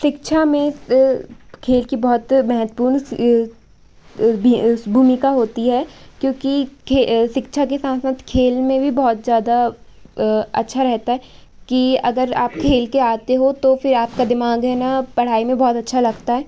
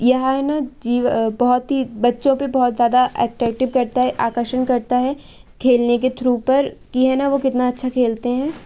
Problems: background sounds at intervals